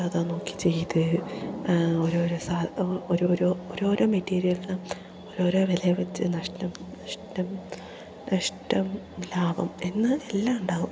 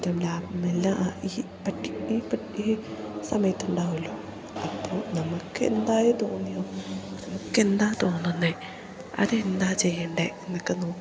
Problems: none marked